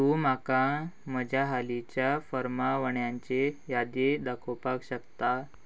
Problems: none marked